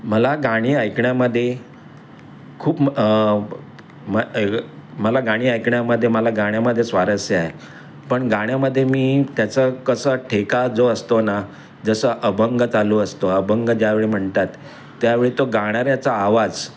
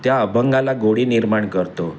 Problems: none marked